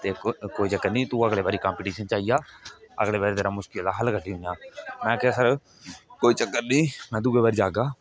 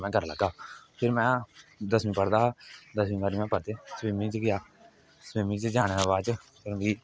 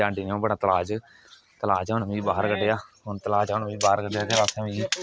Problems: none marked